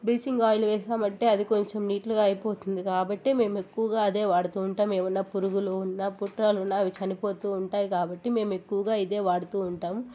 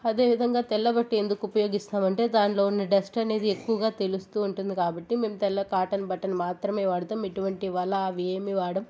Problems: constant background noise, background conversations at intervals